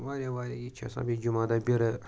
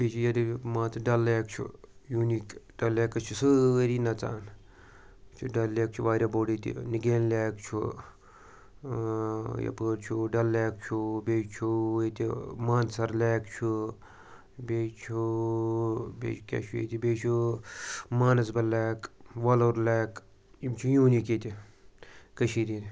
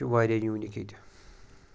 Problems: background sounds at intervals